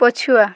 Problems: constant background noise